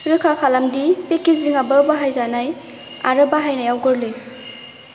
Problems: constant background noise